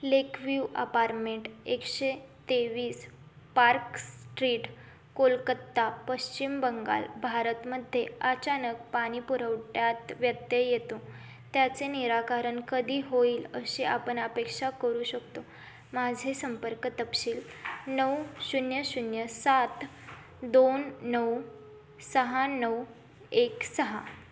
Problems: constant background noise